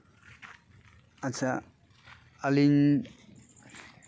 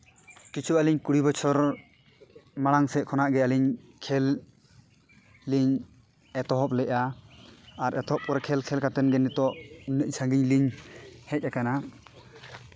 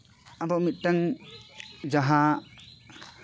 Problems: constant background noise